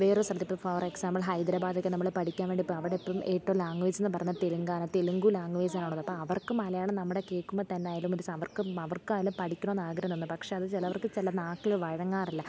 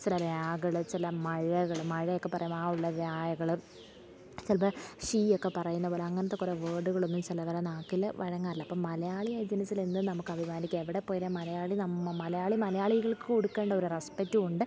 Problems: background sounds at intervals, low volume